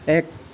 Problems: constant background noise